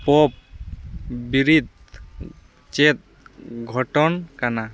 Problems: none marked